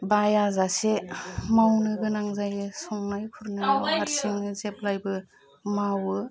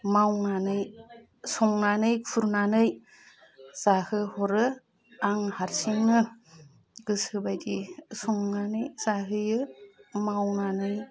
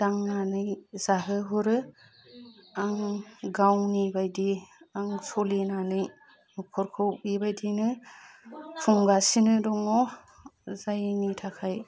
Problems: low volume